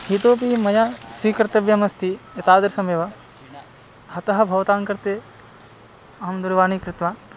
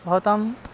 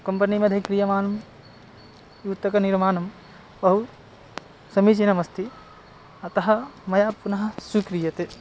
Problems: background sounds at intervals